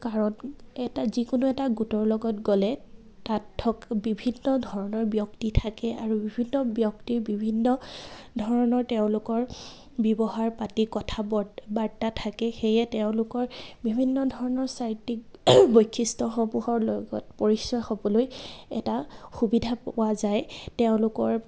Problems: constant background noise, background conversations at intervals